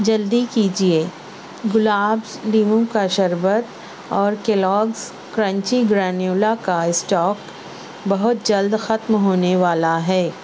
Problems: constant background noise